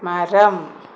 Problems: constant background noise